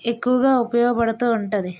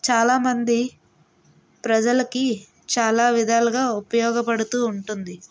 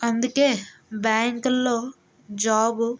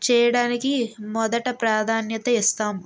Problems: background sounds at intervals